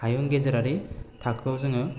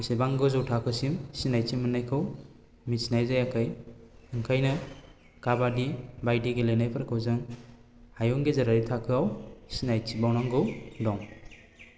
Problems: constant background noise